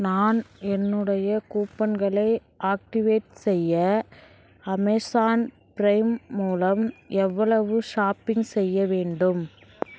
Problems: constant background noise